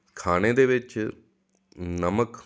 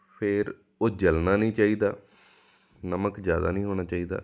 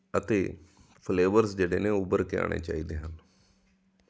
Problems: background sounds at intervals